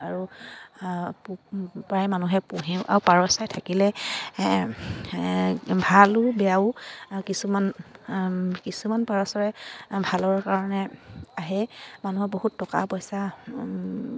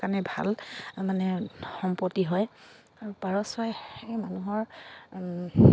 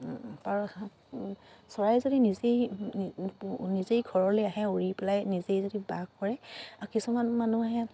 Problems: none marked